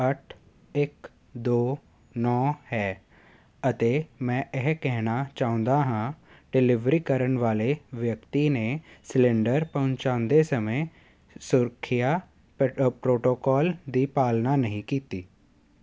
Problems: constant background noise